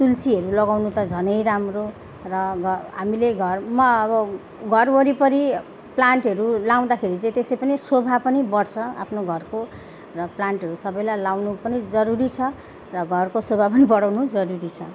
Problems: background sounds at intervals